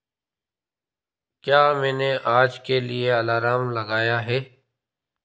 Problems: constant background noise